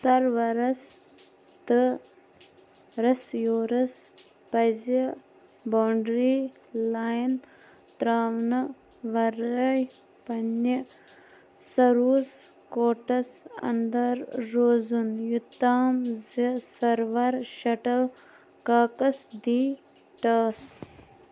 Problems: constant background noise